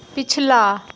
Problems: constant background noise